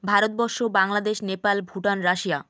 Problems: constant background noise